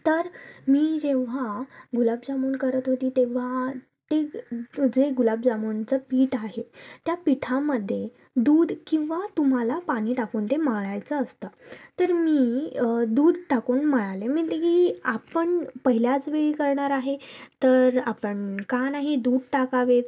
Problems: none marked